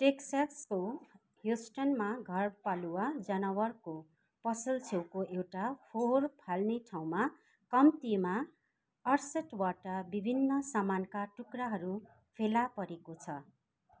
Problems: constant background noise